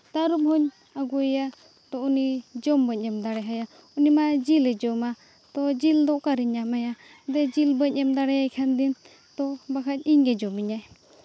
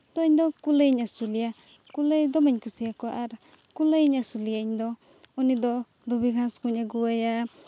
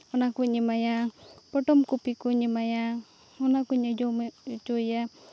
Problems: none marked